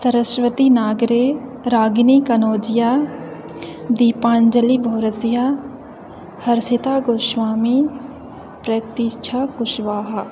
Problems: constant background noise